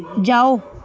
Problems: background conversations at intervals